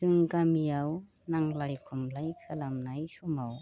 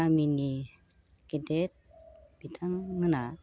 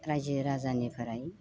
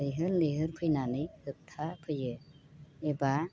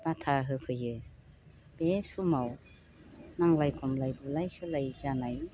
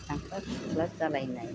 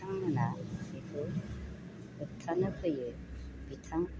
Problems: none marked